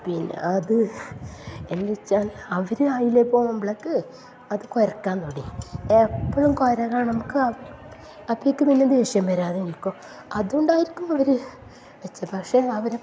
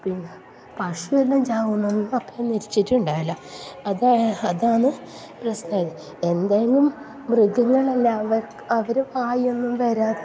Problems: low volume